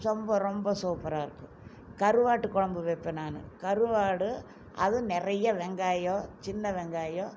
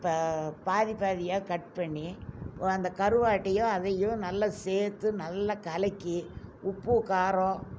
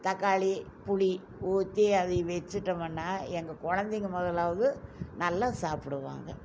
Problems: none marked